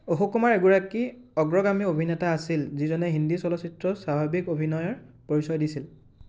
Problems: constant background noise